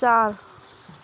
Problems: background sounds at intervals